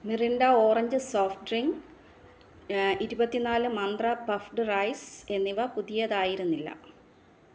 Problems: low volume